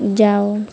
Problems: constant background noise